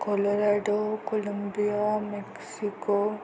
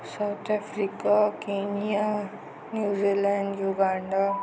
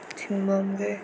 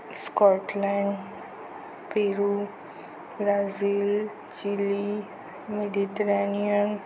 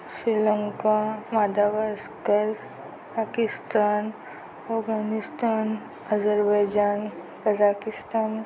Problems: constant background noise